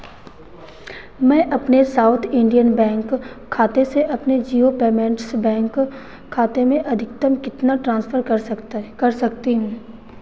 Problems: none marked